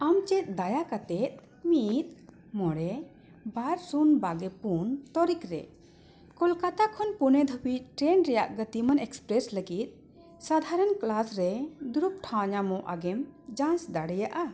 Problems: none marked